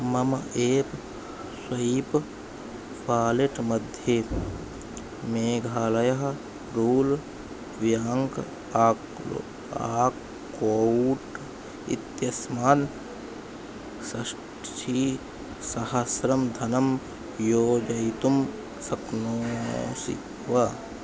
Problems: constant background noise